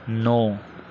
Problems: low volume